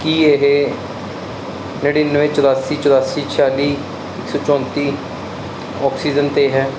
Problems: constant background noise